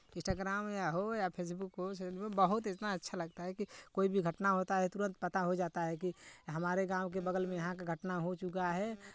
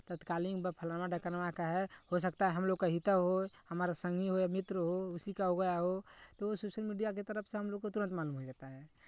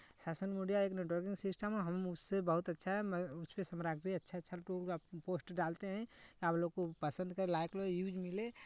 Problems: none marked